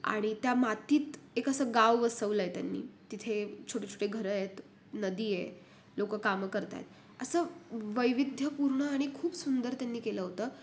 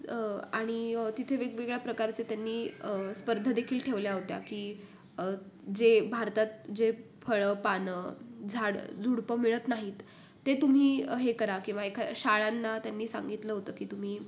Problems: none marked